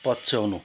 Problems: background sounds at intervals